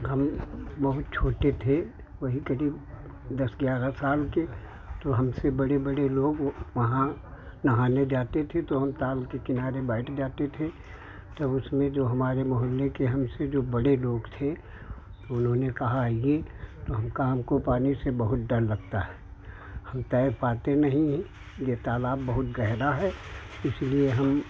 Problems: none marked